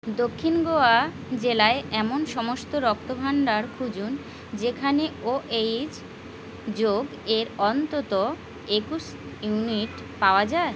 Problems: constant background noise